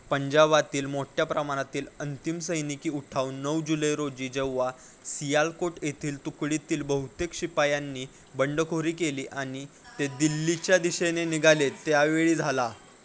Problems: constant background noise, background conversations at intervals